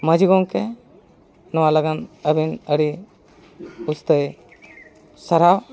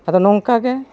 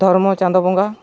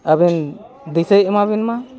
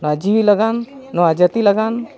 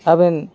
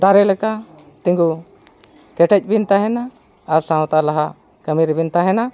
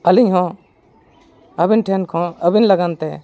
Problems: constant background noise